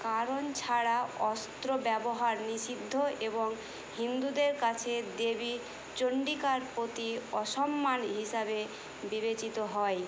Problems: constant background noise